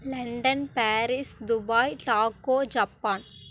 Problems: none marked